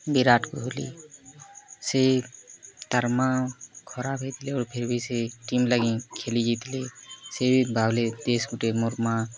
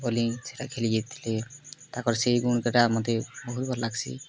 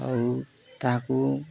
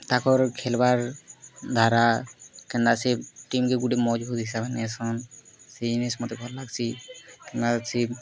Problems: constant background noise, continuous background conversations